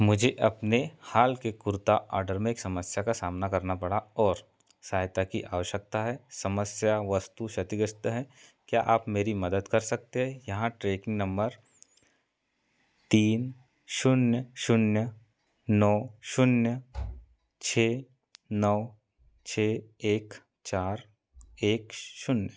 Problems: background sounds at intervals